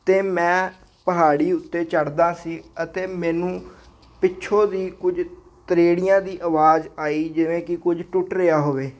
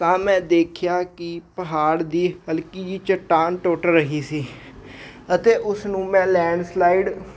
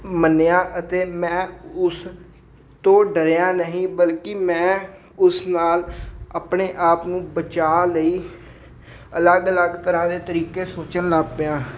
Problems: none marked